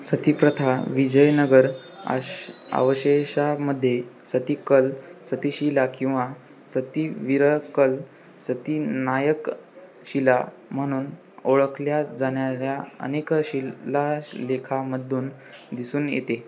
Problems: none marked